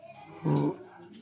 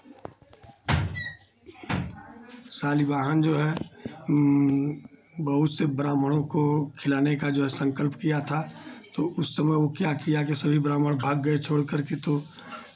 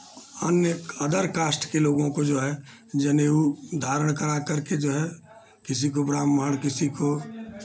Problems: constant background noise